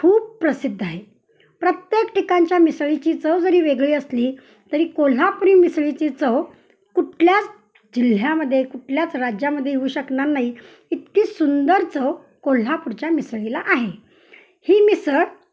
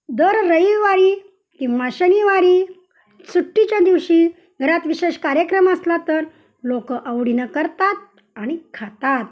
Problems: none marked